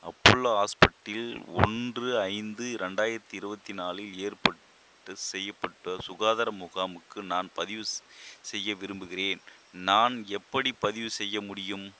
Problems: constant background noise